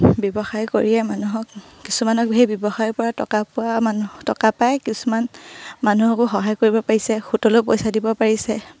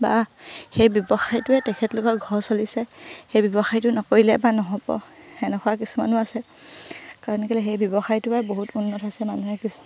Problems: low volume